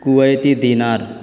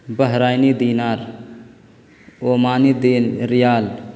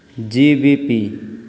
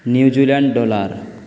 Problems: constant background noise